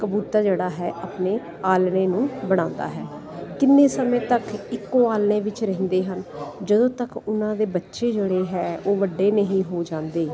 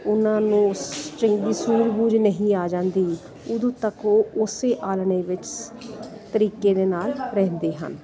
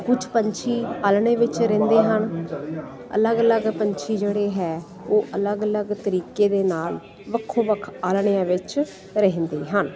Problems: none marked